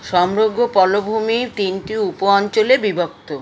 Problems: constant background noise